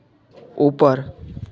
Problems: background sounds at intervals